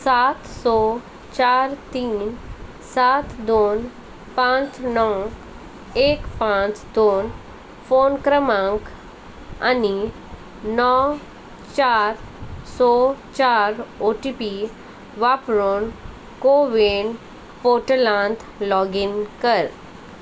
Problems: constant background noise